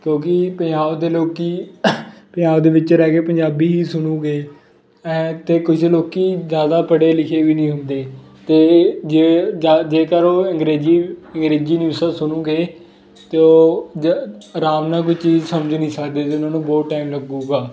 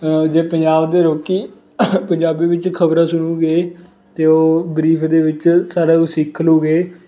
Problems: constant background noise